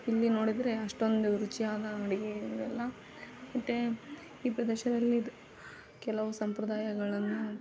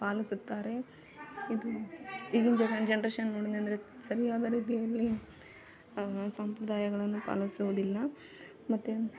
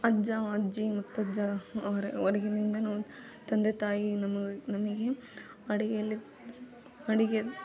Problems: background sounds at intervals, background conversations at intervals